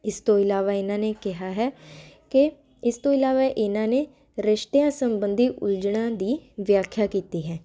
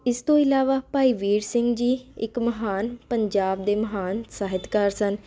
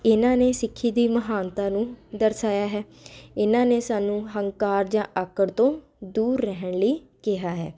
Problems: constant background noise